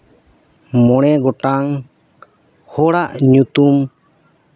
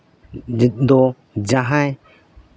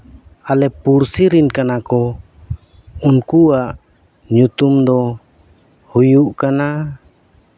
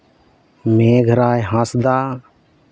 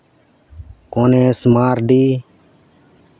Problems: background sounds at intervals